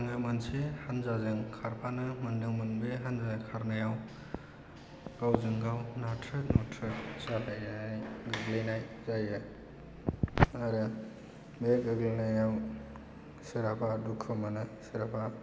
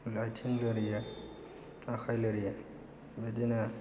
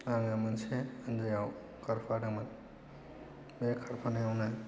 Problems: low volume